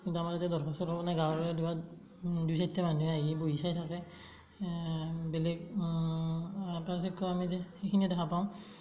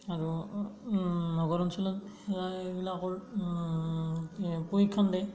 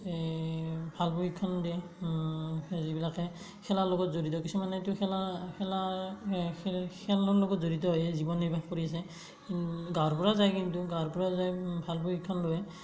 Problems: none marked